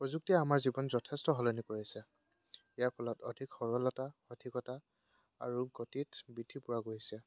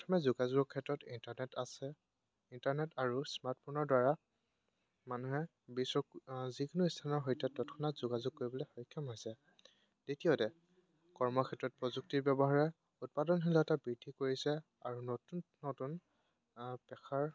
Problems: background sounds at intervals